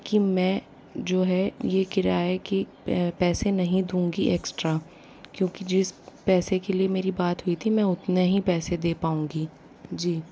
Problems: low volume